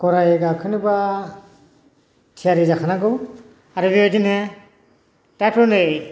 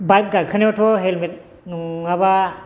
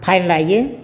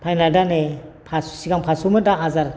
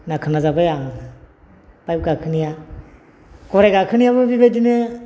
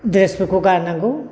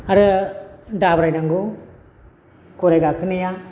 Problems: constant background noise